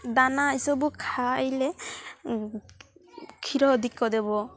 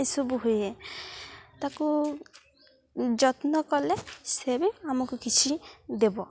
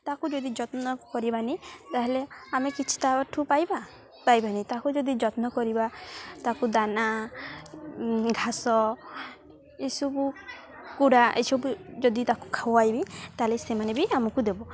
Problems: none marked